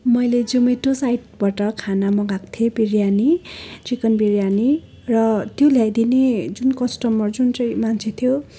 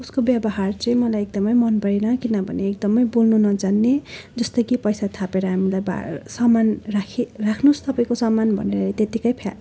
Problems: constant background noise